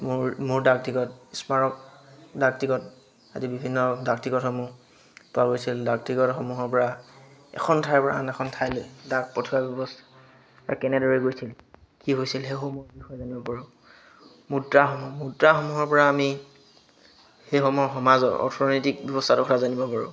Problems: constant background noise, background conversations at intervals